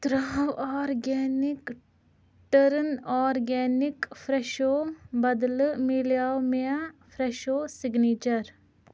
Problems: none marked